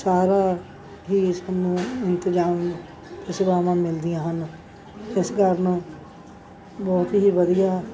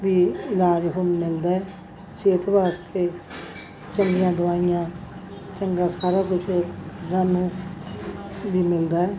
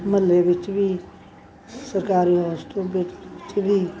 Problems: background sounds at intervals, background conversations at intervals